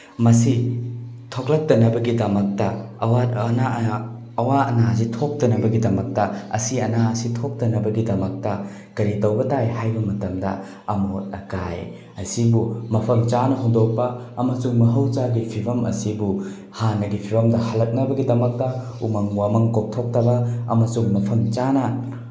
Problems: none marked